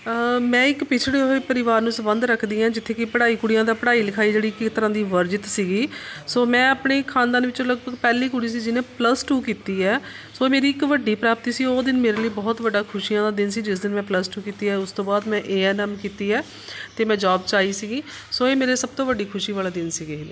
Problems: none marked